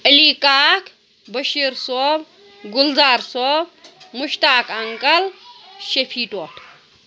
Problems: constant background noise